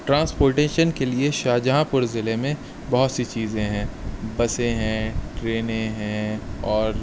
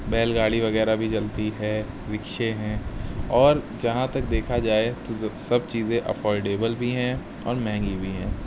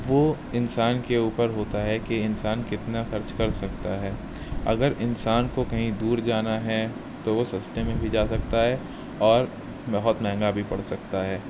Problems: constant background noise